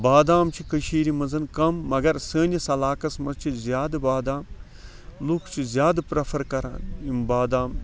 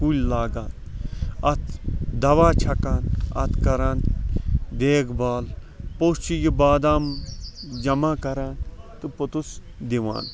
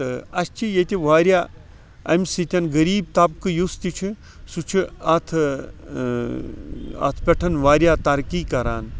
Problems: background sounds at intervals, background conversations at intervals